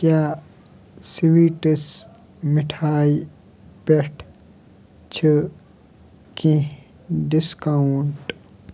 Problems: background sounds at intervals